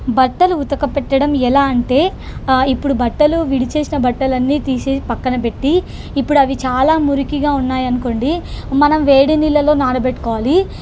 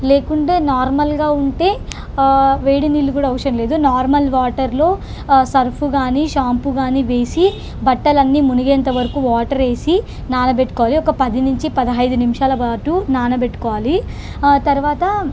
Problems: constant background noise